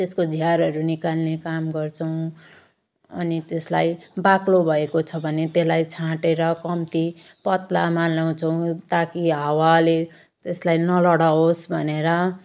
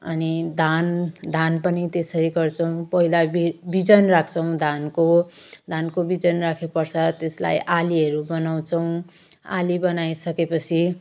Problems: none marked